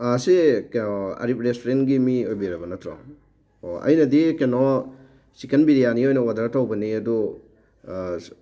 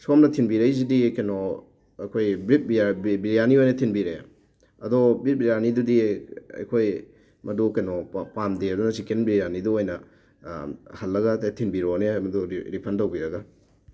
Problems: none marked